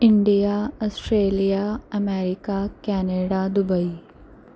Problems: none marked